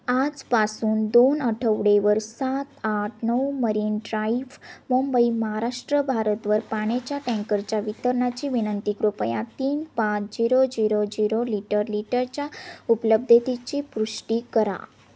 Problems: none marked